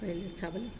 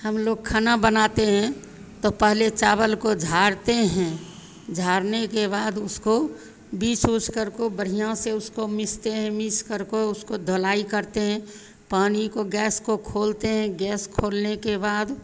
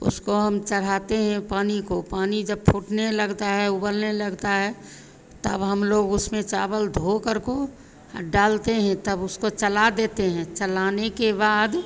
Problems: constant background noise, continuous background conversations